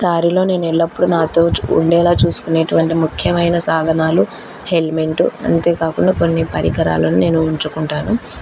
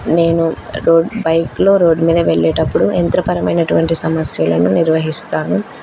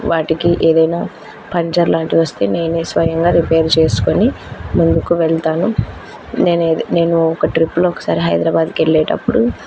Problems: constant background noise